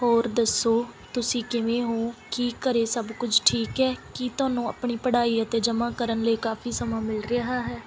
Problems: background sounds at intervals